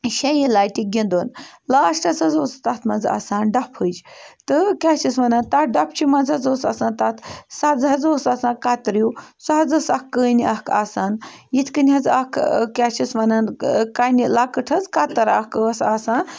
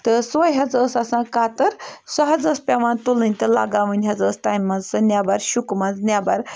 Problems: background sounds at intervals